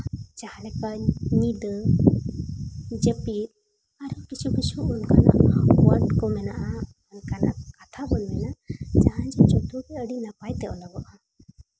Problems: constant background noise